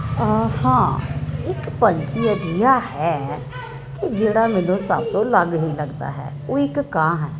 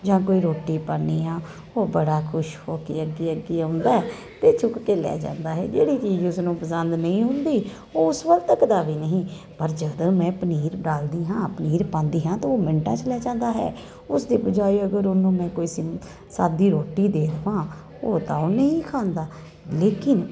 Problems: none marked